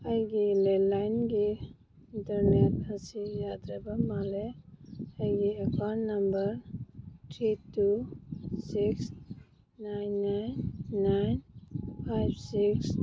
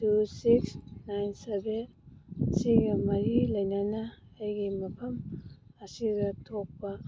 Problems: background sounds at intervals